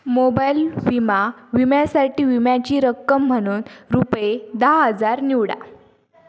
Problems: constant background noise